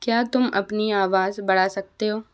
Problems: none marked